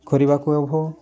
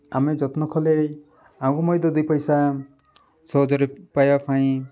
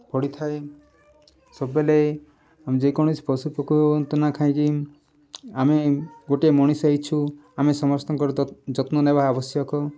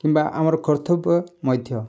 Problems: background sounds at intervals, background conversations at intervals